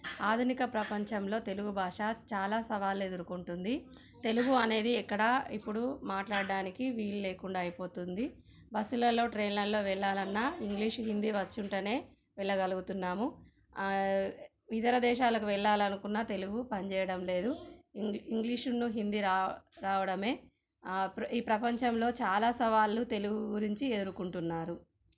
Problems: none marked